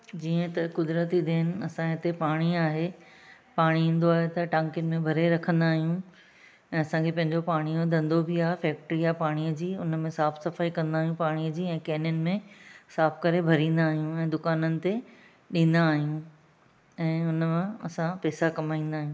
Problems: none marked